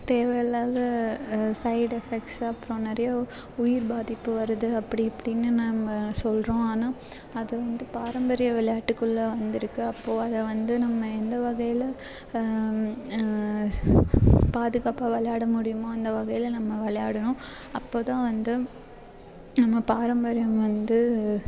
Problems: constant background noise